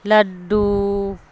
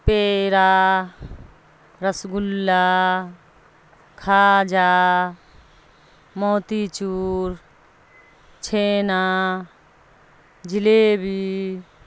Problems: constant background noise